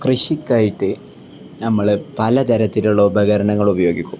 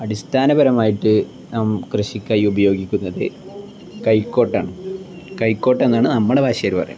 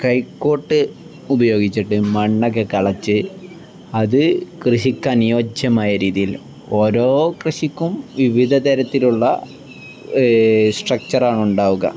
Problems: none marked